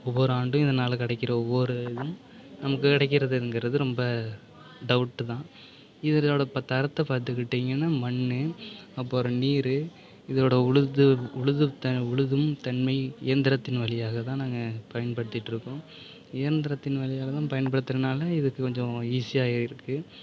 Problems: none marked